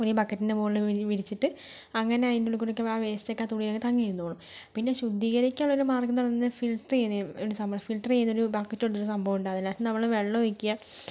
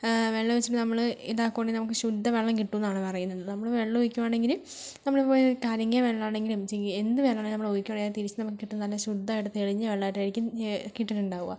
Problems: none marked